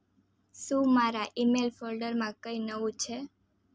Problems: none marked